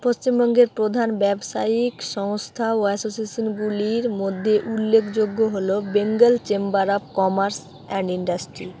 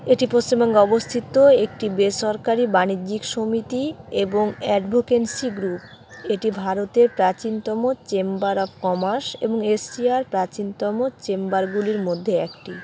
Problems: background sounds at intervals, background conversations at intervals